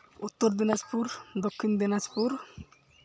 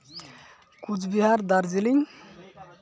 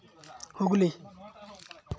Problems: background conversations at intervals